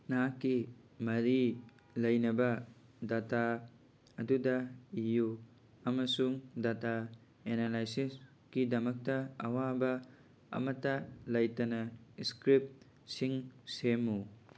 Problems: none marked